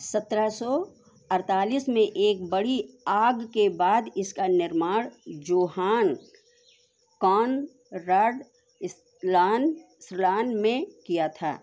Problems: constant background noise